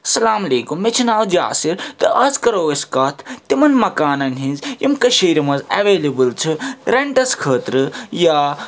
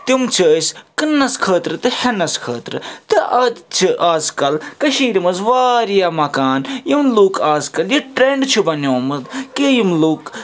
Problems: constant background noise